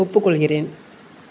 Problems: none marked